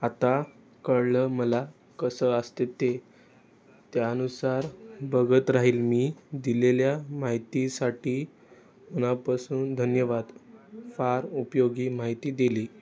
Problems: none marked